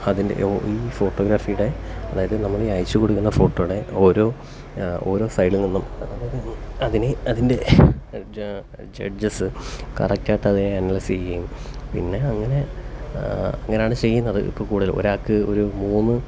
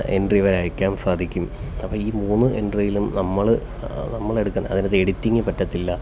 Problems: none marked